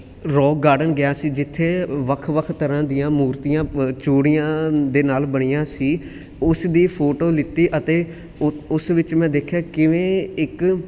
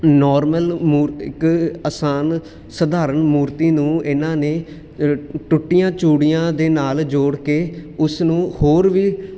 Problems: constant background noise